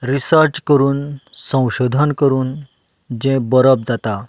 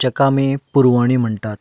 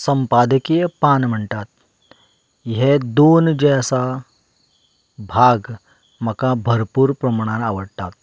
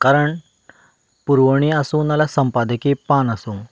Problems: background sounds at intervals